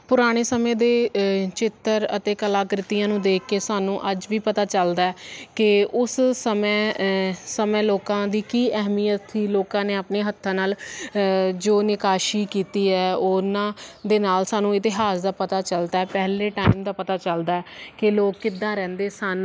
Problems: constant background noise